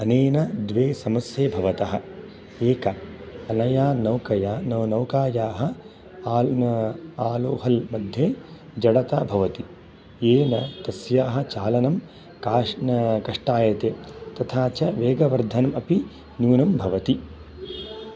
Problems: background sounds at intervals